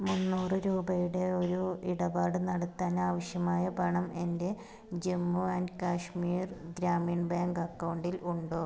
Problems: none marked